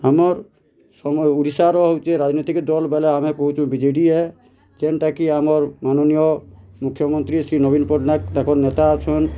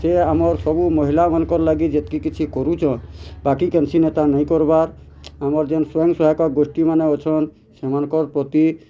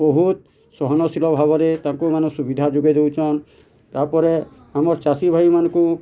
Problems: constant background noise